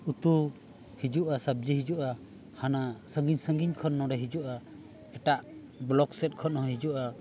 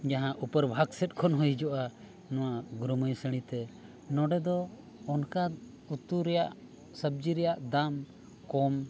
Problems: constant background noise